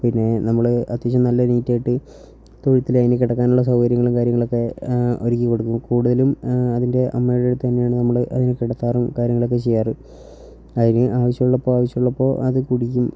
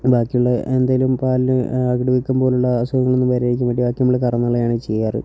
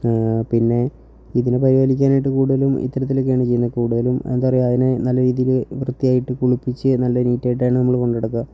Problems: low volume